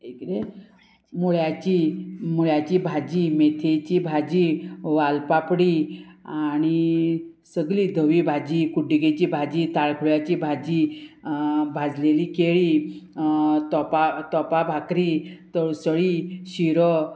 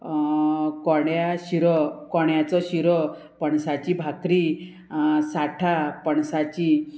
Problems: constant background noise